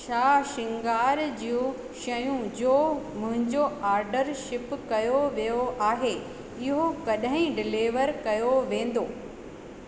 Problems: constant background noise, echo